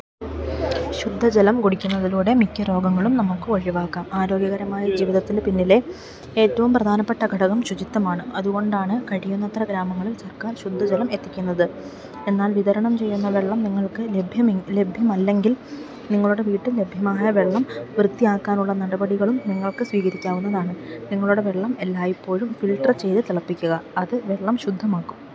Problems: none marked